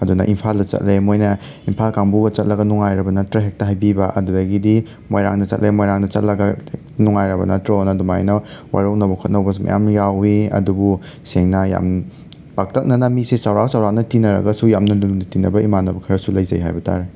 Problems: background sounds at intervals